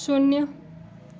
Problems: background sounds at intervals